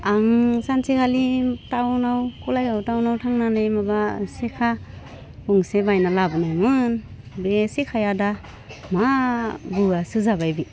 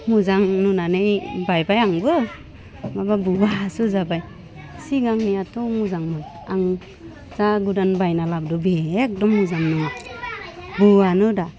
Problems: none marked